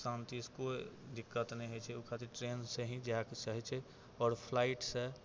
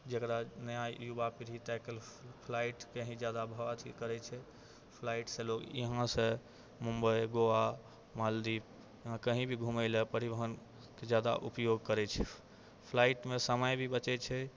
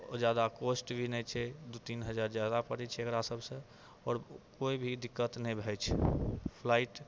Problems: none marked